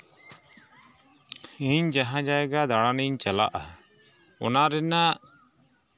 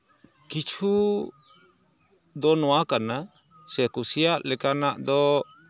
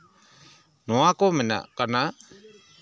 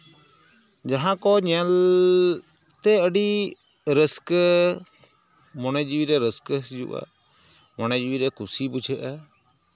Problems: background sounds at intervals